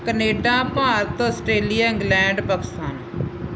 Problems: constant background noise